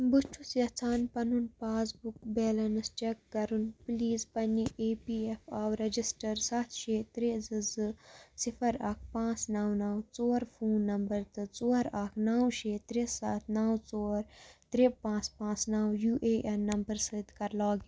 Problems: background sounds at intervals